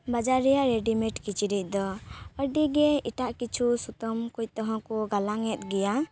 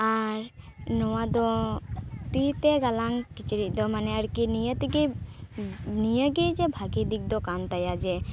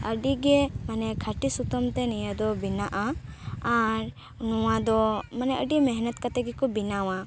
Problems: constant background noise